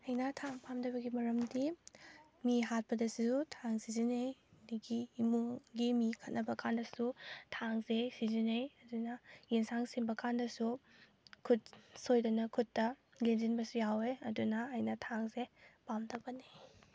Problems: background conversations at intervals